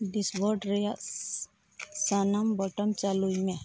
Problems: none marked